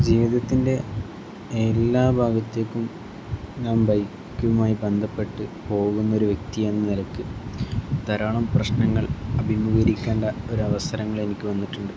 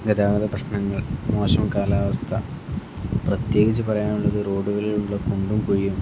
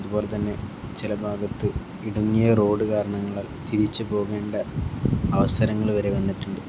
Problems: constant background noise